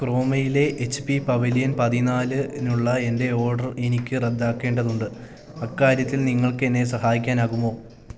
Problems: constant background noise